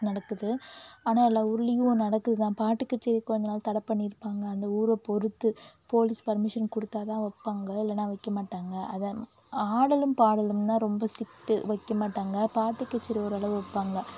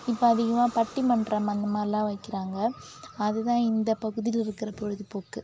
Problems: none marked